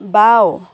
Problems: constant background noise